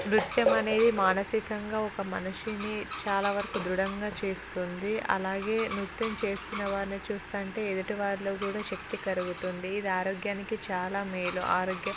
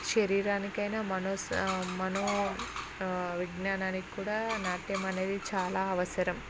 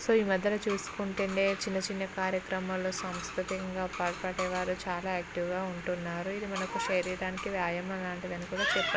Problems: constant background noise, background conversations at intervals